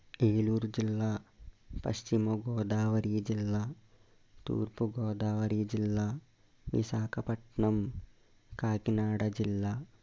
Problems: constant background noise, low volume